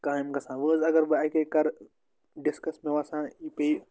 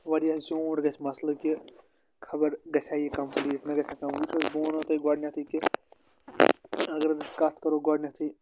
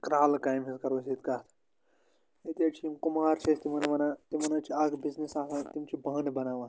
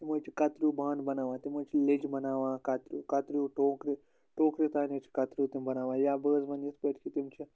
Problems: constant background noise